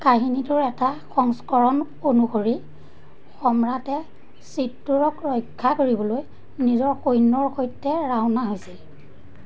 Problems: constant background noise